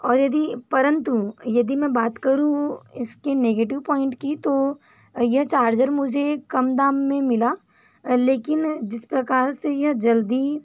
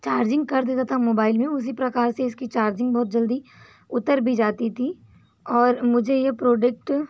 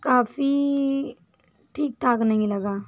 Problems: background sounds at intervals